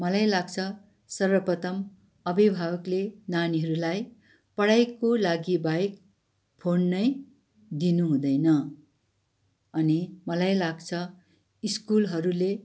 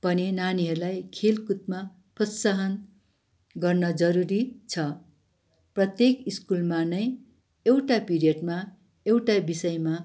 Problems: none marked